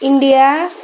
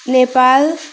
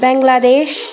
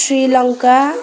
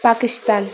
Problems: constant background noise